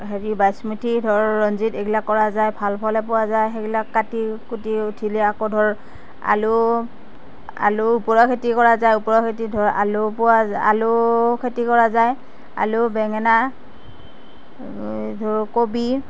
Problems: constant background noise